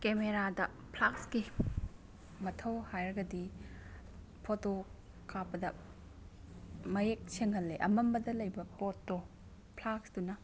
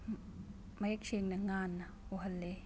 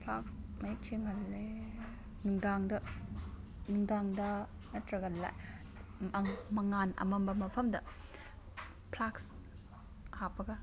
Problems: background sounds at intervals